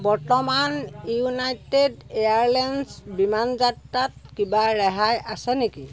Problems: constant background noise